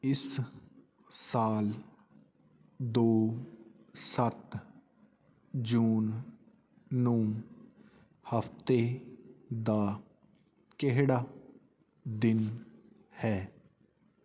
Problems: constant background noise